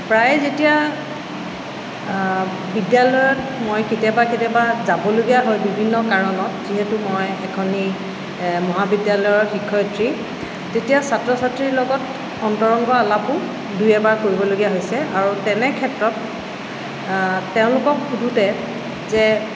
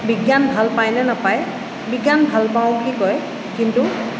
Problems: constant background noise